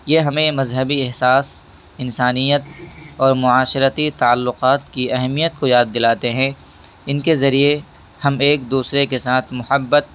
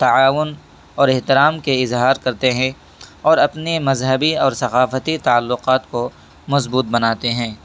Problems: background sounds at intervals